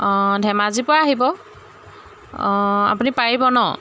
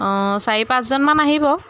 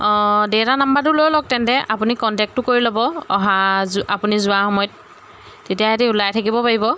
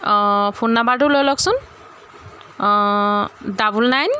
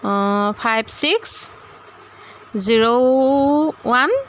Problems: constant background noise